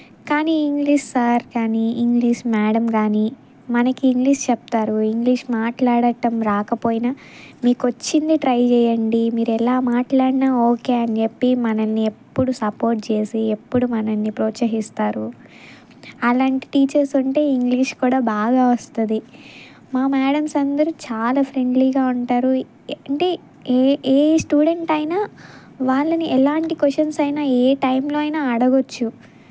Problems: background sounds at intervals